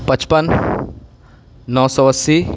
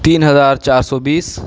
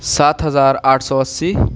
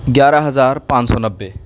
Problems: constant background noise